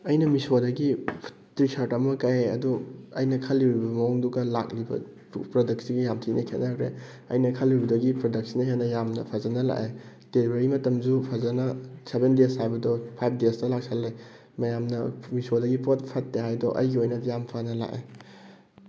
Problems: none marked